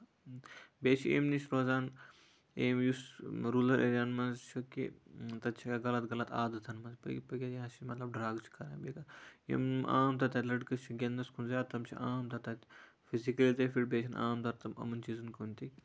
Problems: low volume